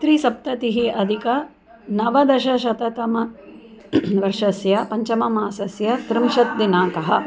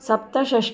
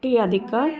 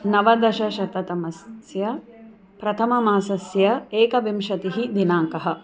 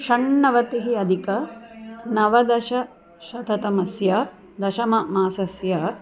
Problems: none marked